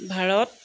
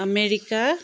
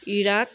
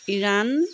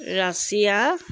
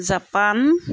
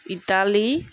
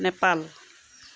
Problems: background sounds at intervals